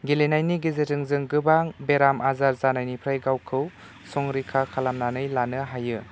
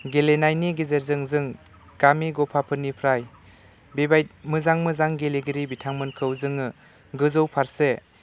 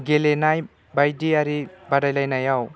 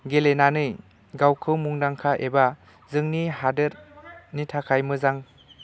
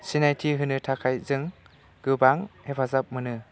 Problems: none marked